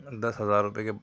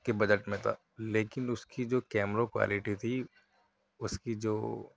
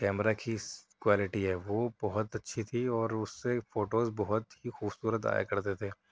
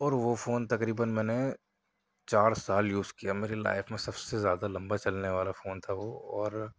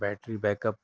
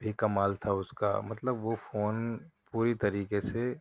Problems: none marked